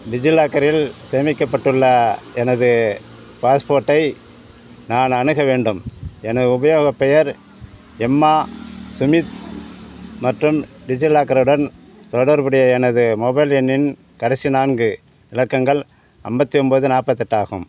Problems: none marked